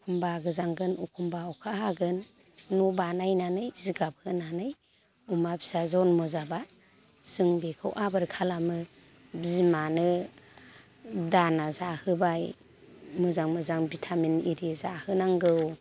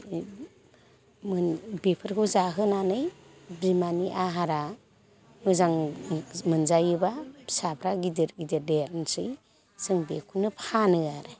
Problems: constant background noise